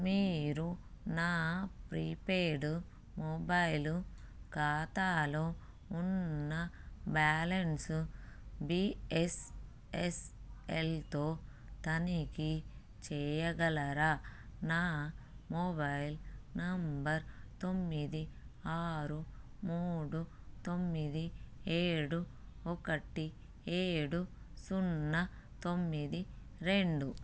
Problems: none marked